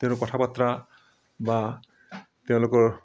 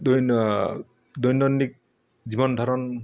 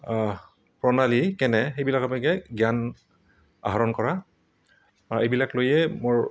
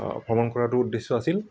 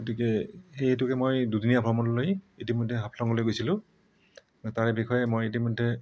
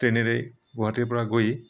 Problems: background sounds at intervals